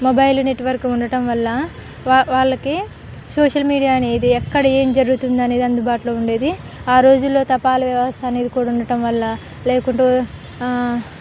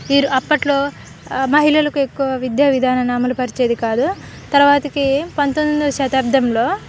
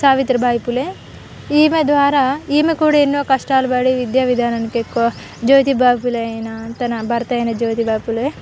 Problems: constant background noise, background conversations at intervals